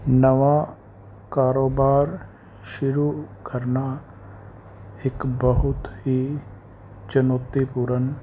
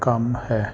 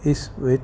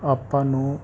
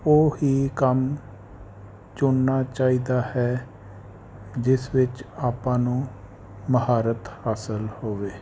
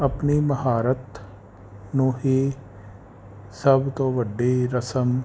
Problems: none marked